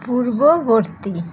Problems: constant background noise